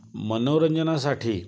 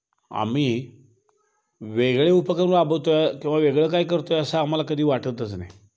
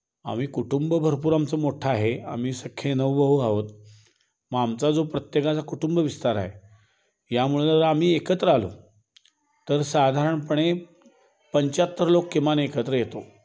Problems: background sounds at intervals